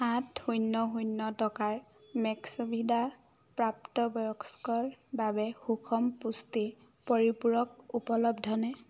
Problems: none marked